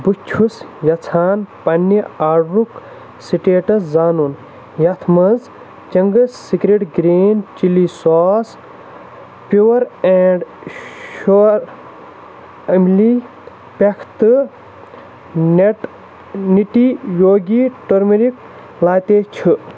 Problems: constant background noise